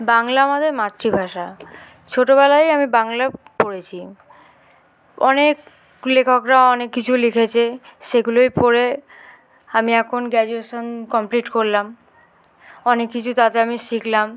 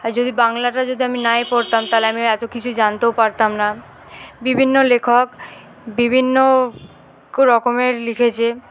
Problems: constant background noise, background conversations at intervals